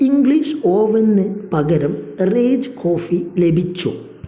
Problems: low volume